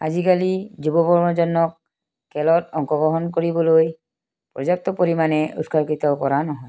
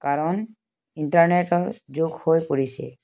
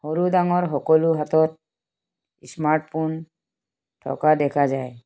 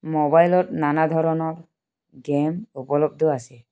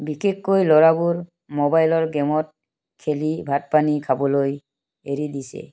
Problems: background sounds at intervals